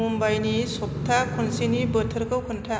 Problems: constant background noise